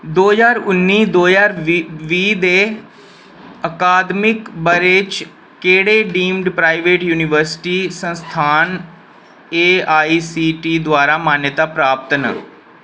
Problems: none marked